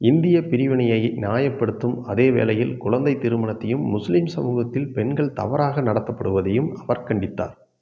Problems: none marked